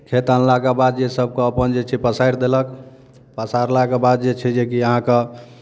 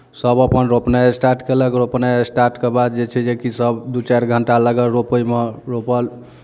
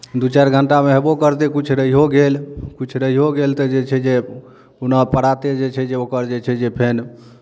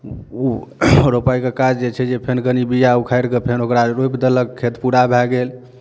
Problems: none marked